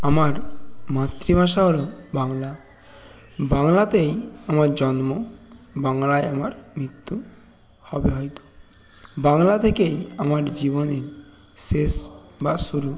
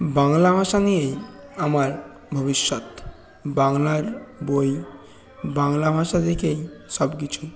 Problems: constant background noise, continuous background conversations